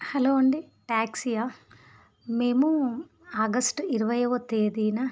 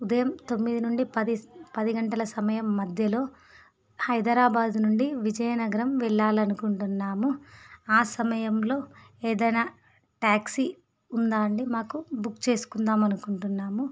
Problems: none marked